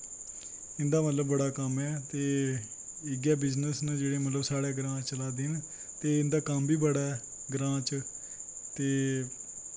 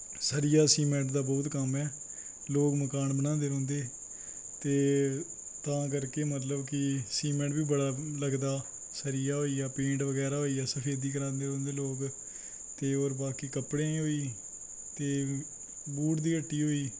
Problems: constant background noise